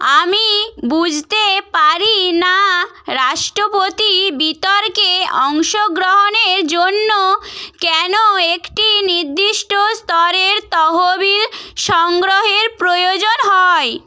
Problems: none marked